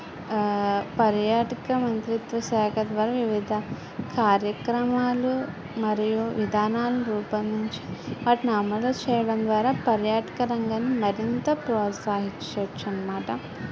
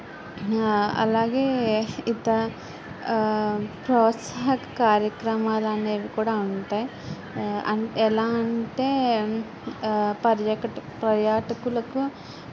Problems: continuous background conversations